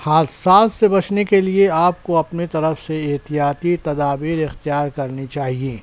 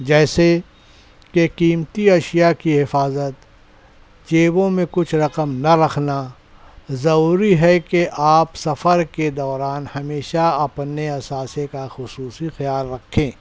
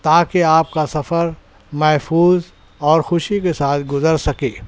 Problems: none marked